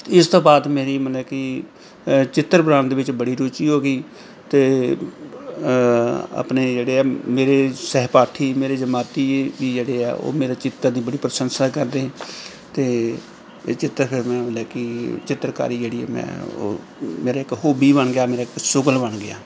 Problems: background sounds at intervals